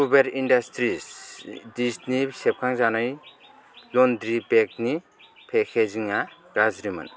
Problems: none marked